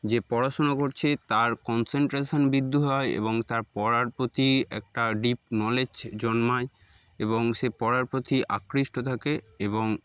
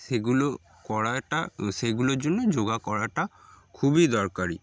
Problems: background sounds at intervals